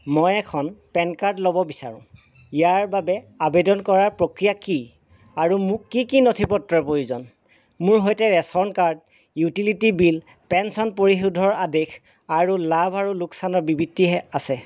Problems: constant background noise